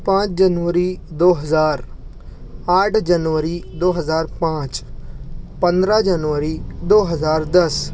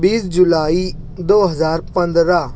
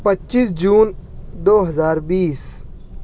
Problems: none marked